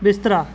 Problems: none marked